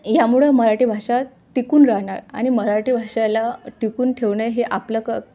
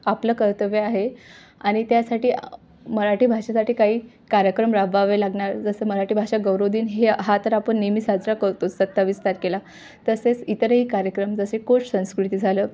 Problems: background sounds at intervals